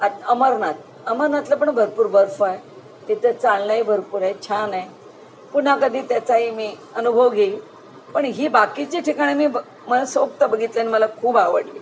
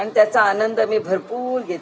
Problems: none marked